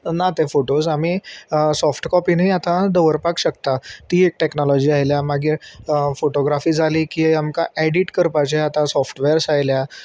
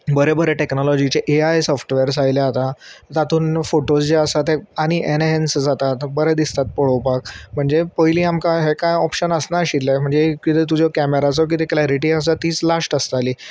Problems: constant background noise